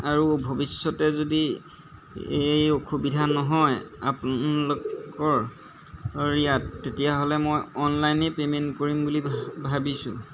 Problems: background sounds at intervals